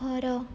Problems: low volume